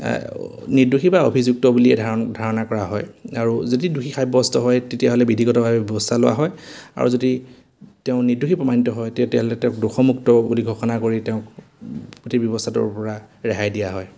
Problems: none marked